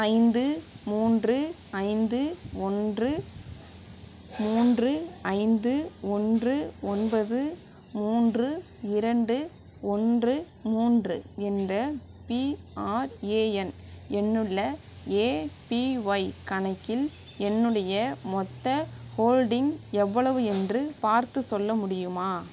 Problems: none marked